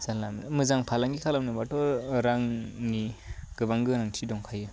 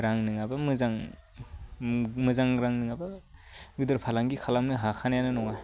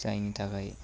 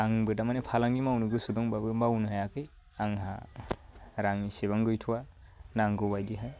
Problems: none marked